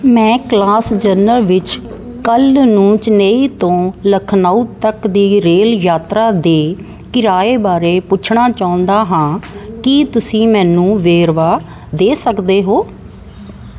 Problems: none marked